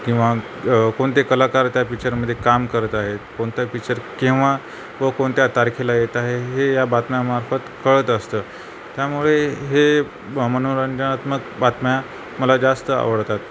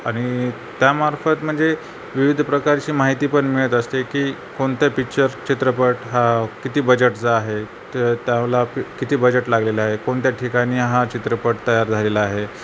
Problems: constant background noise